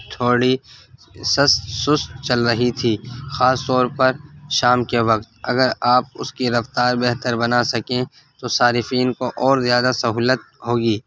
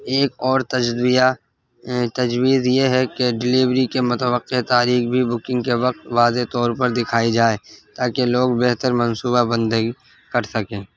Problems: constant background noise